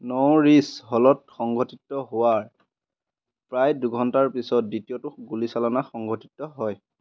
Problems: constant background noise